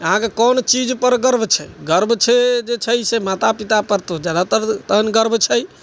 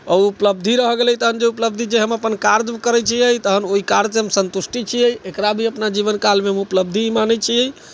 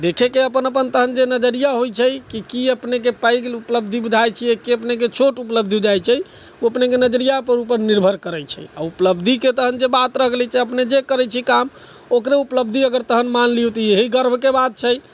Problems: background sounds at intervals